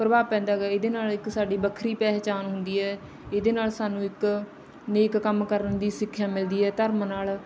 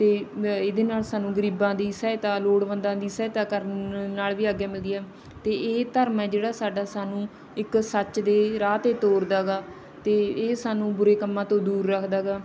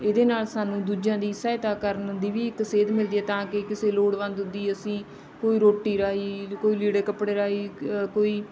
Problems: none marked